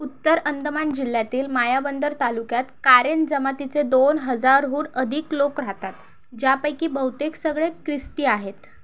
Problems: none marked